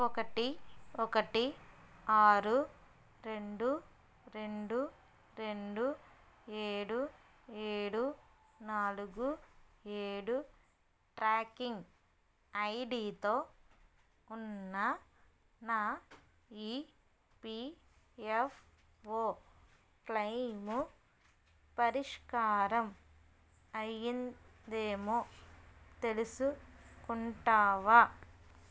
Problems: none marked